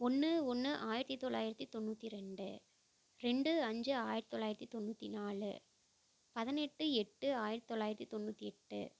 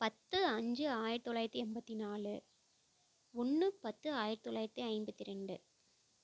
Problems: low volume